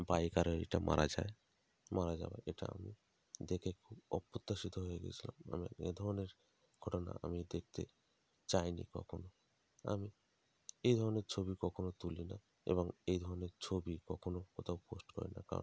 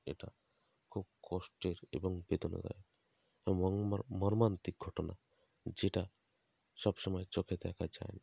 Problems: constant background noise